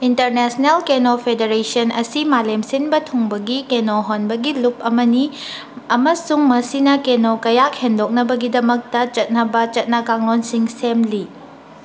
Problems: none marked